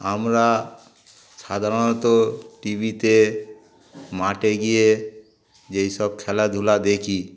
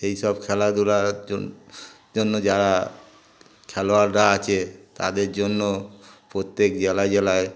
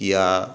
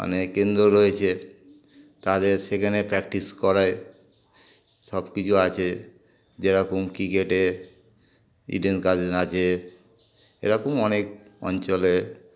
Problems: constant background noise, background conversations at intervals